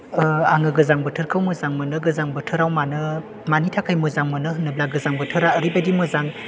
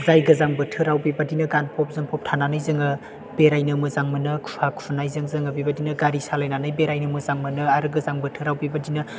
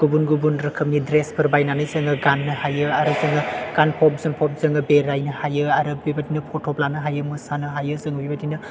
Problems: background sounds at intervals